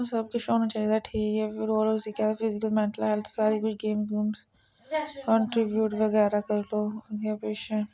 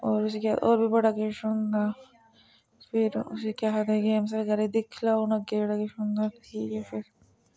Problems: constant background noise